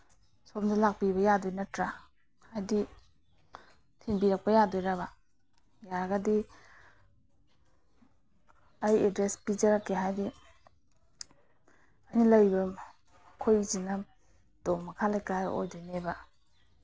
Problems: none marked